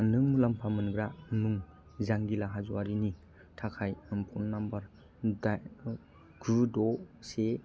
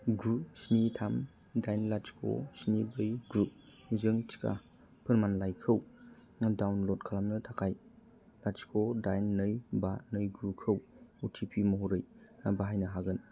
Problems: low volume